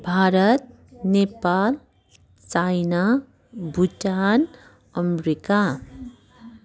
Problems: continuous background conversations